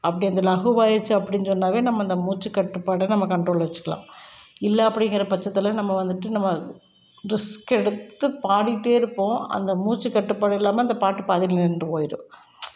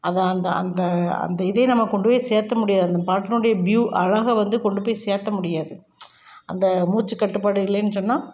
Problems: none marked